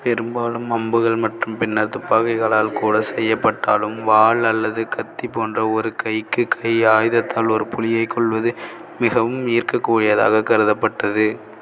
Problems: none marked